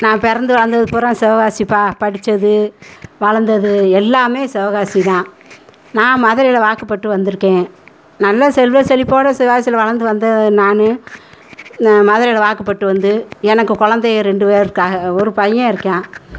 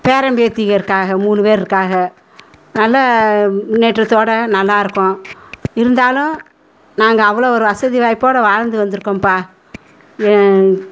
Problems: background conversations at intervals